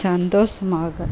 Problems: constant background noise